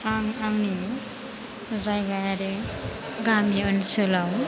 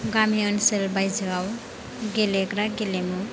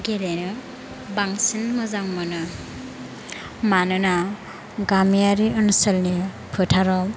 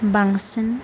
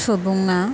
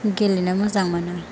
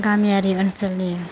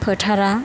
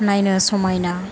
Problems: constant background noise